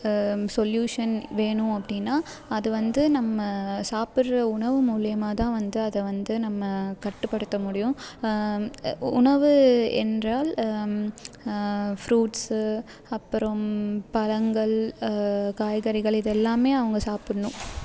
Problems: constant background noise